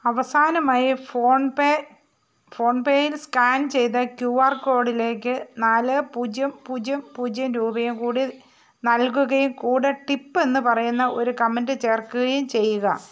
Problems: background sounds at intervals